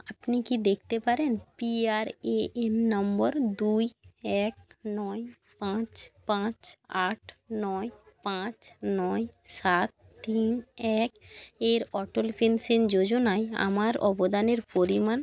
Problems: continuous background conversations